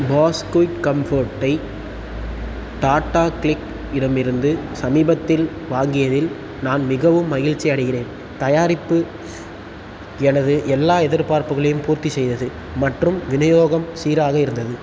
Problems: constant background noise